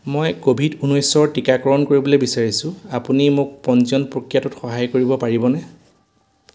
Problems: none marked